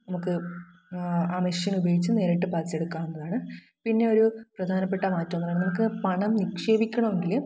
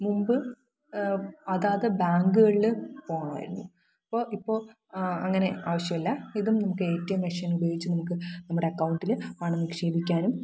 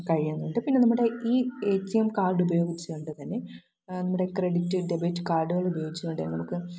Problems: low volume